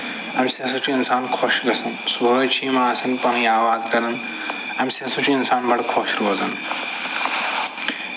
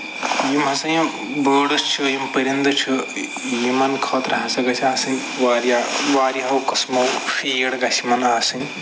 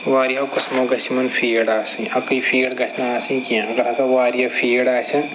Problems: constant background noise, background conversations at intervals